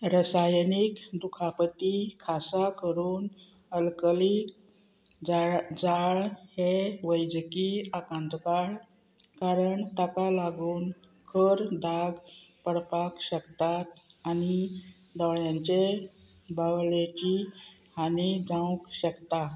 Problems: none marked